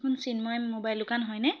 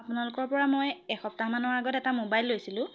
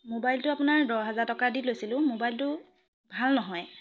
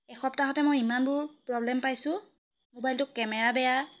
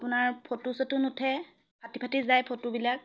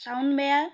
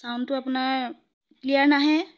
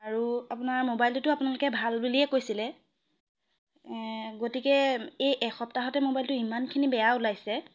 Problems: none marked